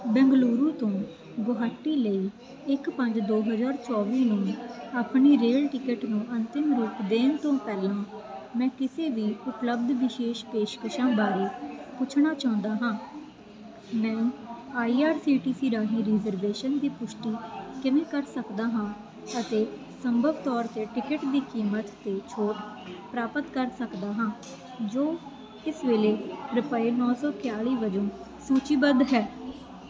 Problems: none marked